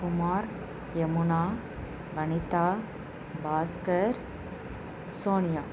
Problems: constant background noise